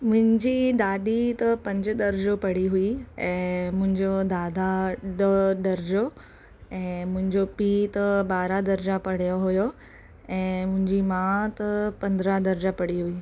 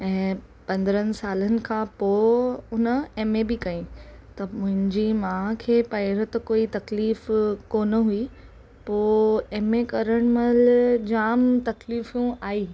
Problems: constant background noise